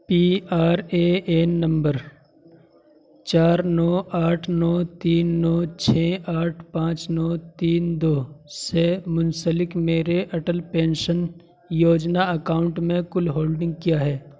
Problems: constant background noise